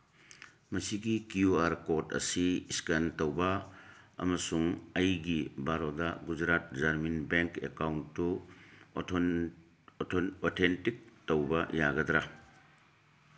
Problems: none marked